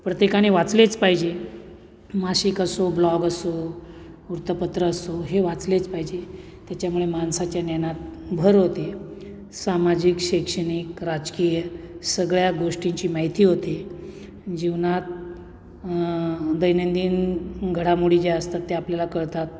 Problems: none marked